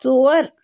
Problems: constant background noise